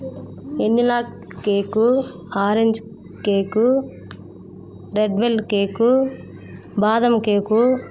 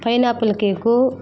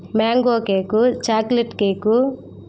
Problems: constant background noise